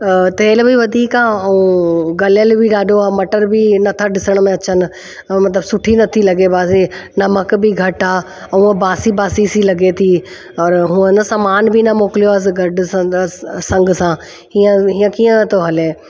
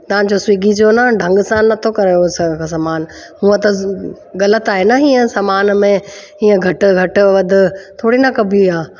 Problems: constant background noise, echo